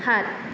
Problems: constant background noise